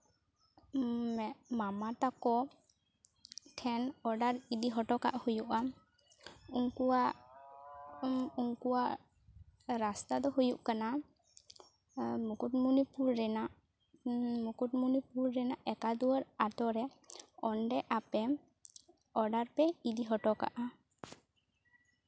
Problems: background sounds at intervals, low volume